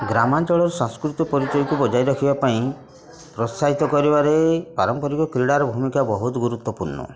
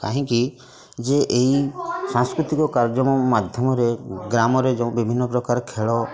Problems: constant background noise, continuous background conversations